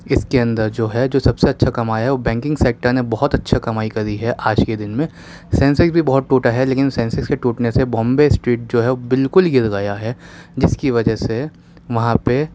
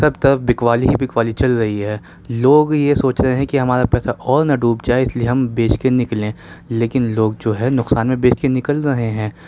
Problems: none marked